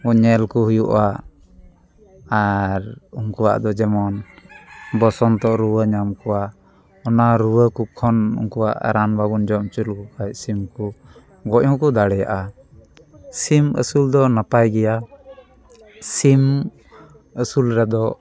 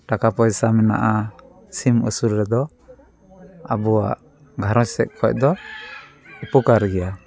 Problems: none marked